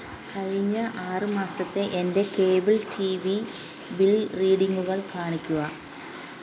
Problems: none marked